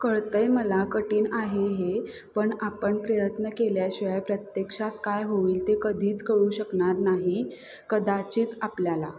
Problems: background sounds at intervals